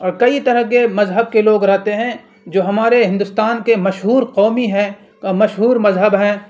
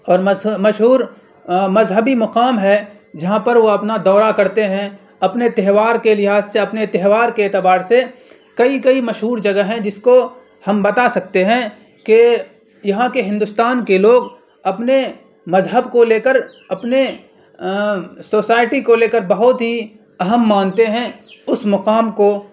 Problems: constant background noise